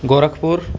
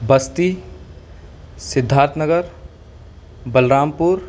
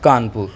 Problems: constant background noise